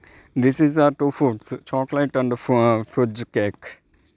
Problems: background sounds at intervals